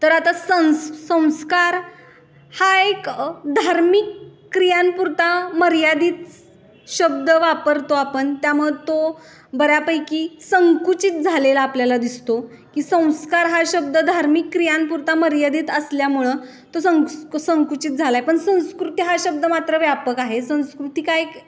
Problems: none marked